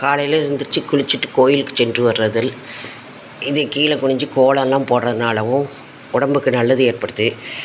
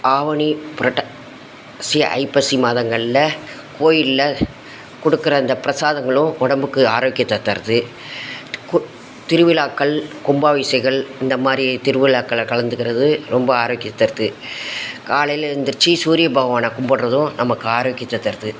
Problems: constant background noise